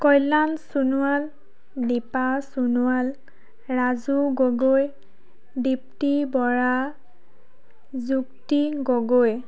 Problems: background conversations at intervals